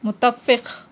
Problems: none marked